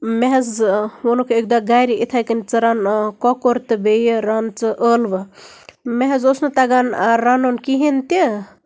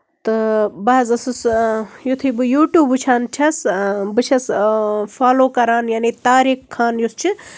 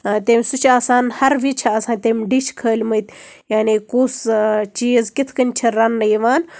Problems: background sounds at intervals